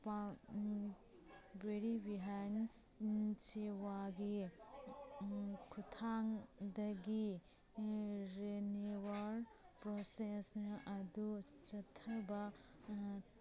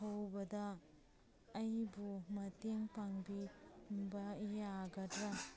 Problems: background sounds at intervals